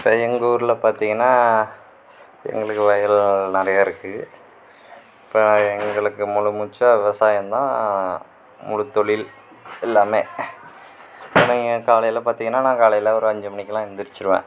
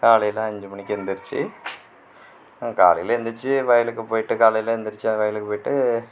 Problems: background conversations at intervals